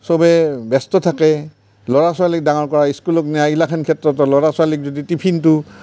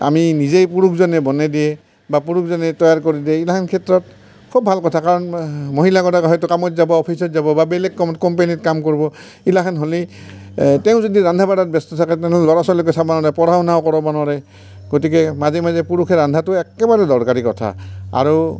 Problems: none marked